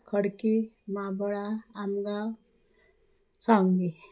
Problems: constant background noise, low volume